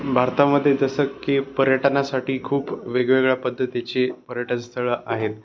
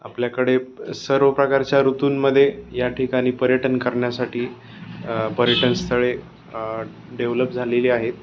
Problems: constant background noise